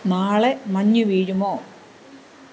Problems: constant background noise